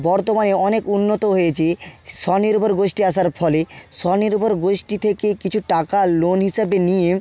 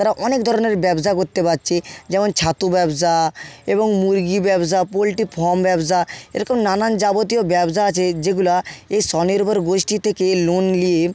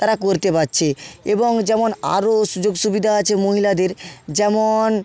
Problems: background sounds at intervals